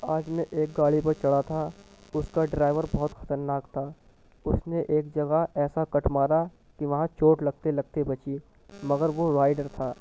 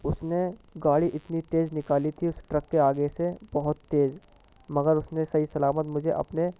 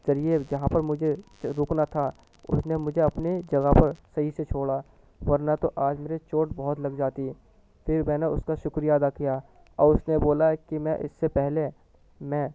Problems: background sounds at intervals, low volume